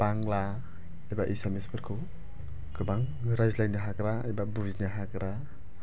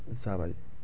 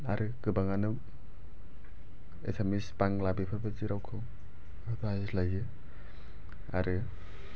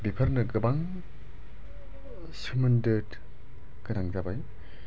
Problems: low volume